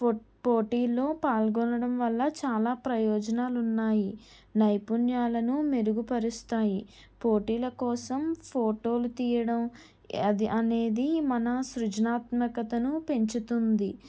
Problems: none marked